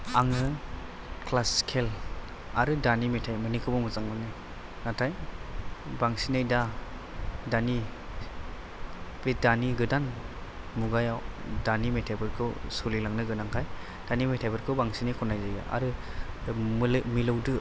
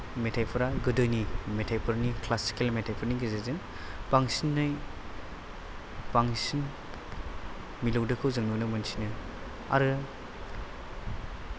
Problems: background sounds at intervals